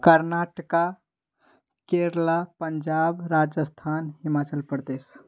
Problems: background sounds at intervals